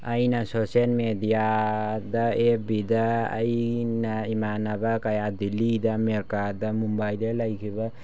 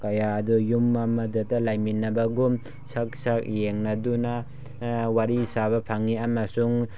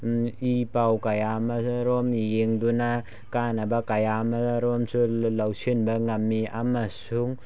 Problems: background sounds at intervals